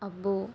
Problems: low volume